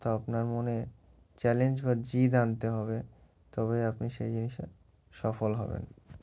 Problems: background sounds at intervals